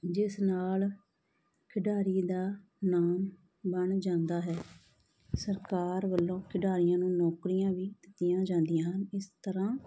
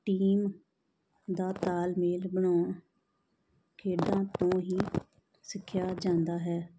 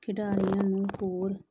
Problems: none marked